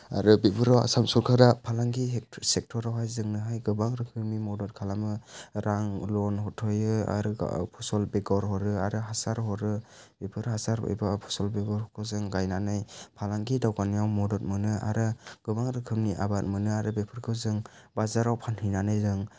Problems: low volume